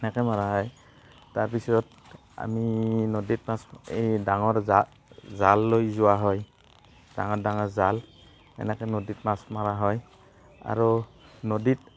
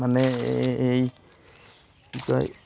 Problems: constant background noise, background conversations at intervals